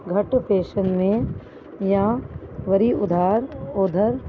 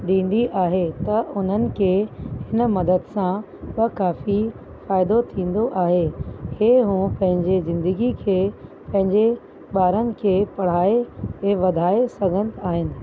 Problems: constant background noise